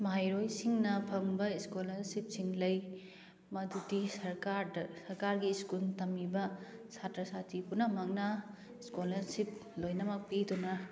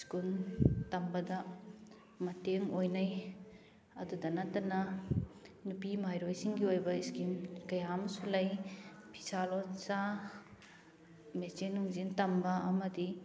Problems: constant background noise